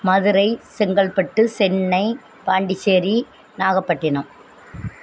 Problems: background sounds at intervals